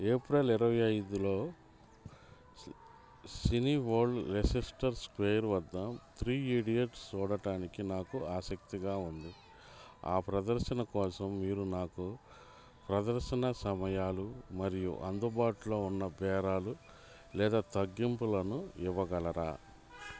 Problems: background sounds at intervals